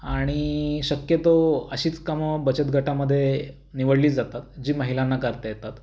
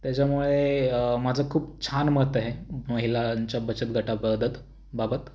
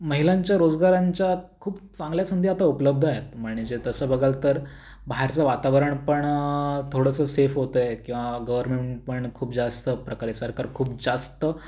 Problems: none marked